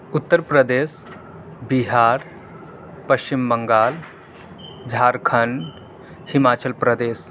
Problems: none marked